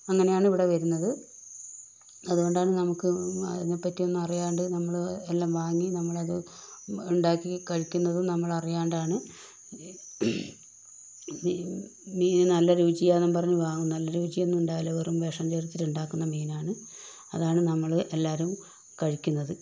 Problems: constant background noise, low volume